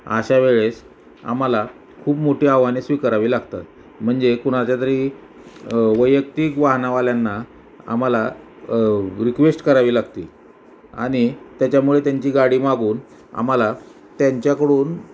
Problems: none marked